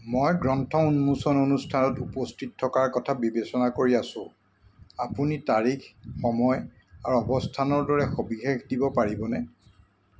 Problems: constant background noise